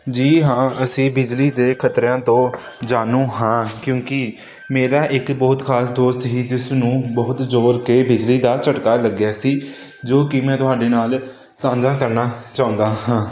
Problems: none marked